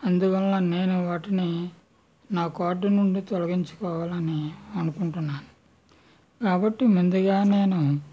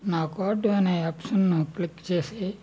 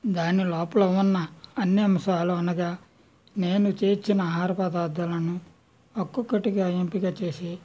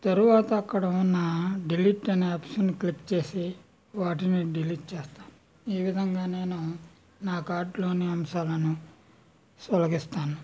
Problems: none marked